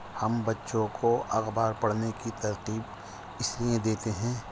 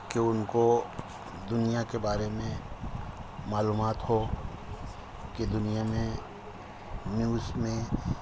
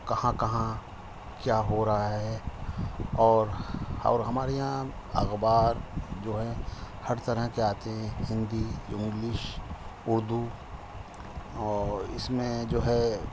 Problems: constant background noise